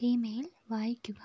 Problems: low volume